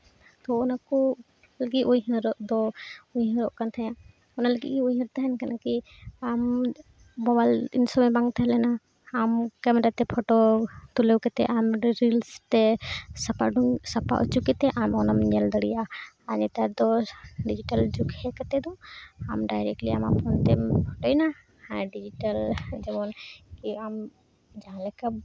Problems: none marked